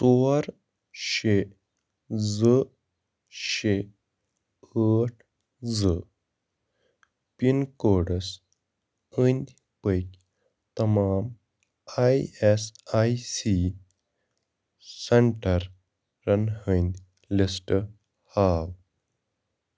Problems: none marked